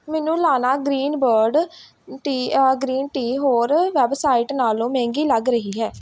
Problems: background sounds at intervals